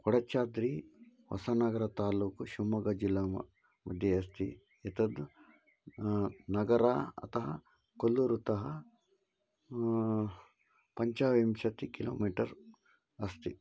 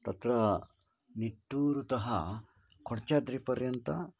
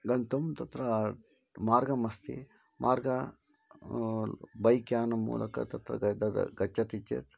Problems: low volume